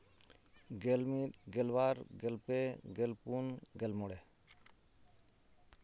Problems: constant background noise